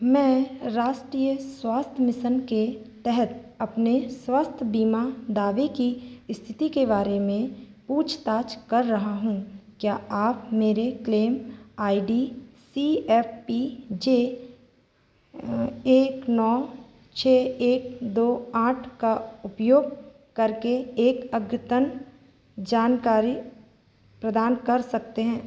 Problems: constant background noise